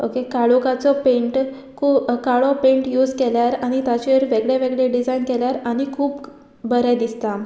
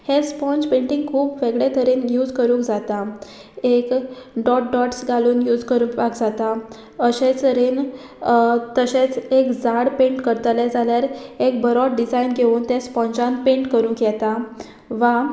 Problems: background sounds at intervals